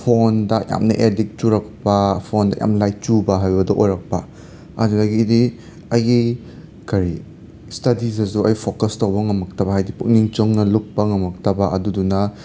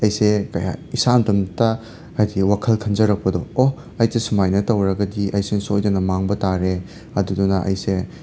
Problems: constant background noise